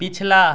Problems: continuous background conversations